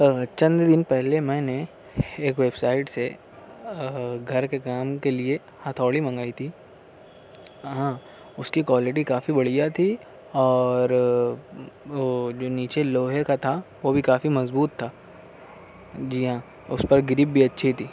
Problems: none marked